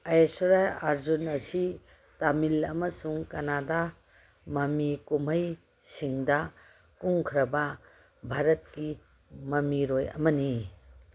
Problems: background sounds at intervals